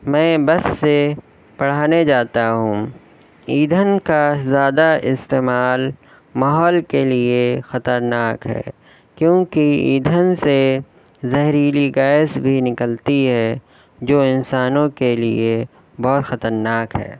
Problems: none marked